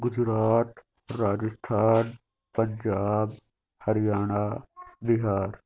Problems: constant background noise